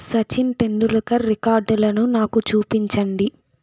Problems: background sounds at intervals